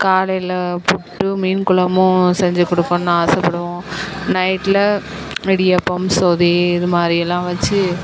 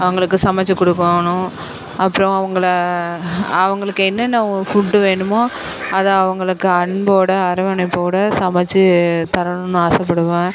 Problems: constant background noise, background conversations at intervals